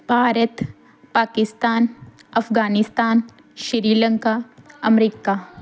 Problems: background sounds at intervals